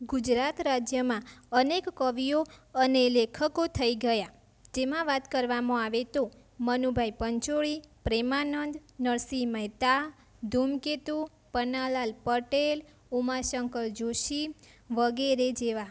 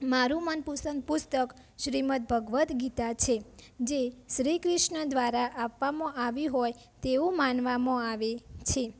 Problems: constant background noise